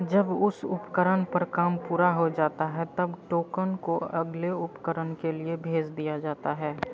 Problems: low volume